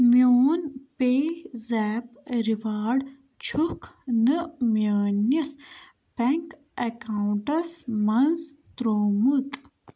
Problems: background sounds at intervals